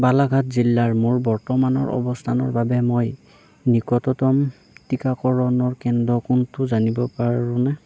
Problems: background conversations at intervals